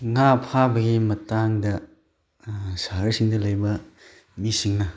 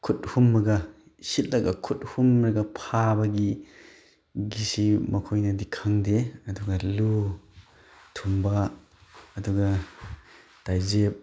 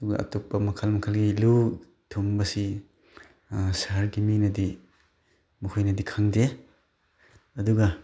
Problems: none marked